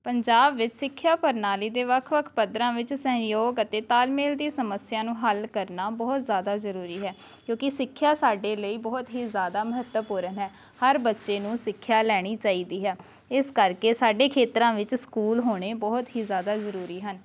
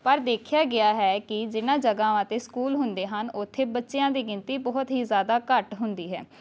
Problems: none marked